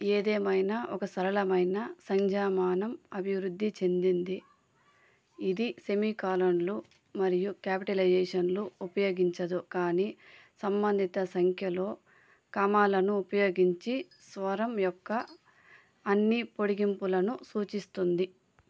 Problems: constant background noise, background conversations at intervals